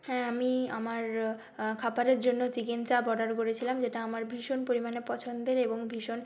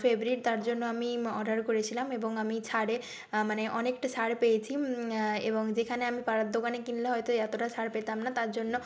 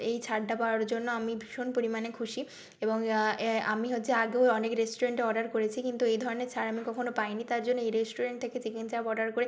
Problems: constant background noise